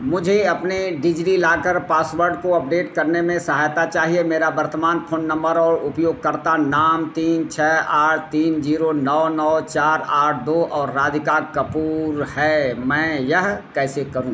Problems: constant background noise